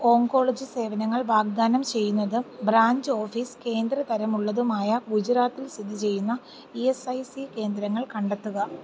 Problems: low volume